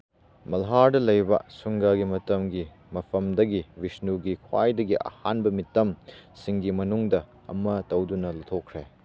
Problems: constant background noise